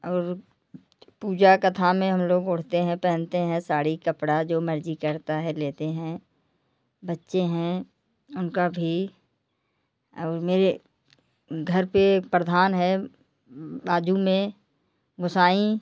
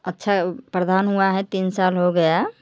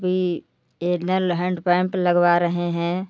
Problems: none marked